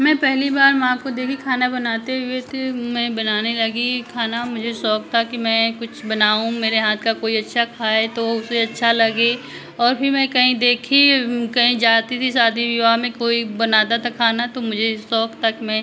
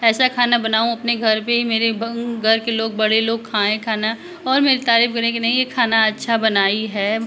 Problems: none marked